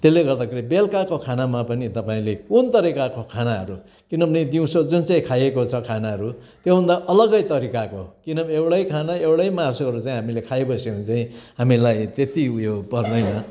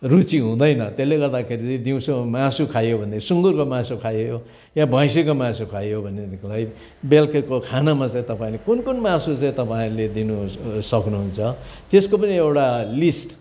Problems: constant background noise